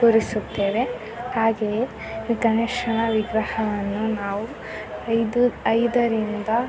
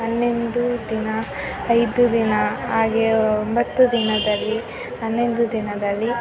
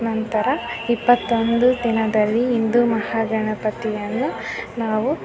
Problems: constant background noise, continuous background conversations